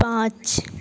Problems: none marked